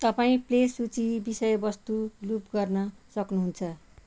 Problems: background sounds at intervals